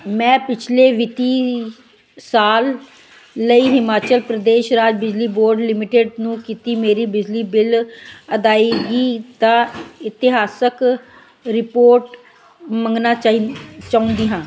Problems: constant background noise